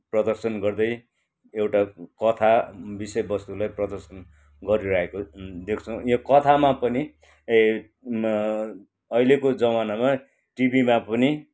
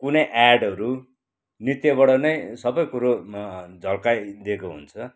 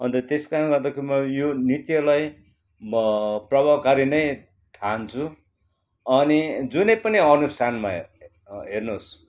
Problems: background sounds at intervals